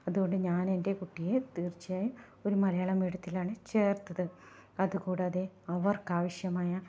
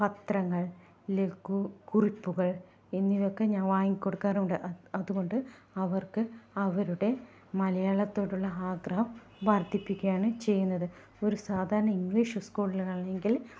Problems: low volume